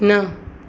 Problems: constant background noise